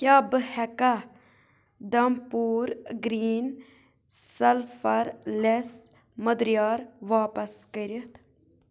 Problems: none marked